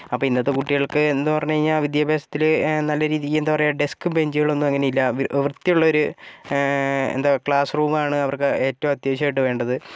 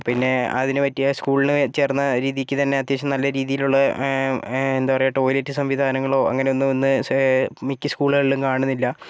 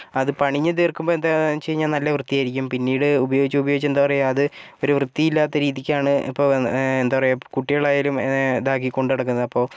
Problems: background sounds at intervals